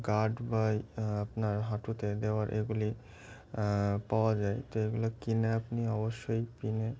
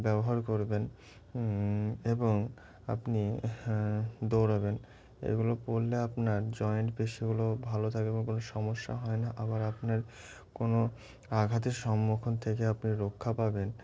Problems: constant background noise, continuous background conversations